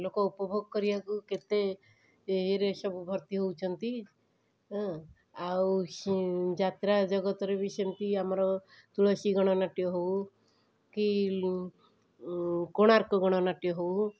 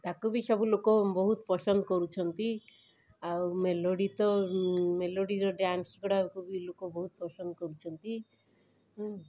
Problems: background sounds at intervals, background conversations at intervals